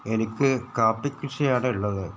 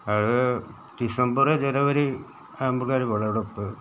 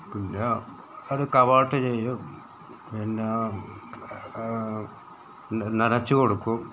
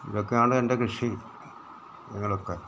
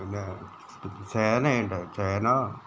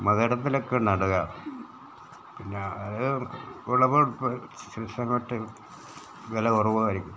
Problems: background sounds at intervals